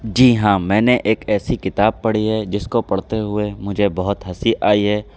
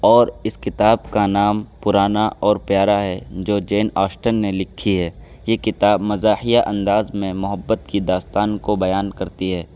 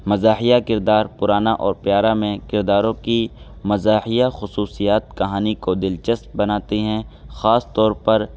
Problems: constant background noise